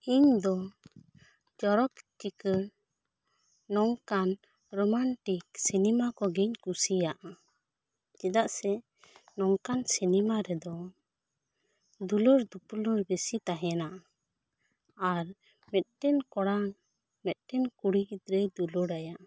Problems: none marked